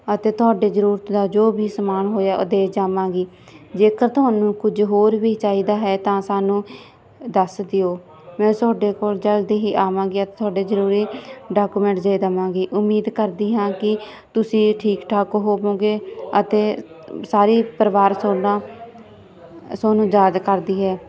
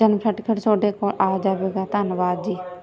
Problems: background conversations at intervals